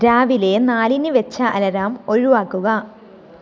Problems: none marked